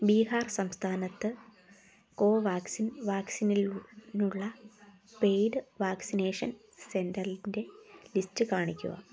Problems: background conversations at intervals